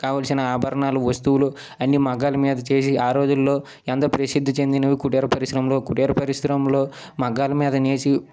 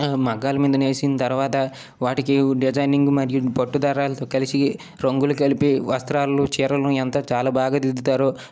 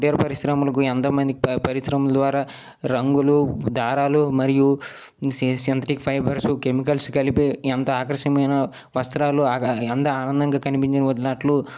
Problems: none marked